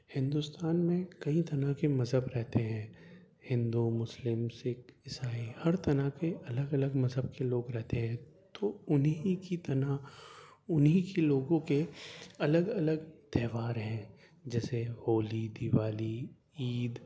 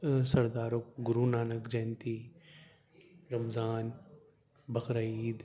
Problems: low volume